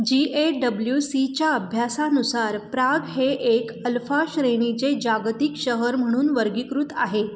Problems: constant background noise